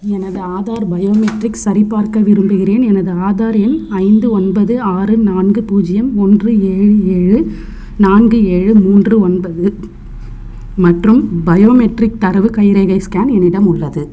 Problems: constant background noise, background conversations at intervals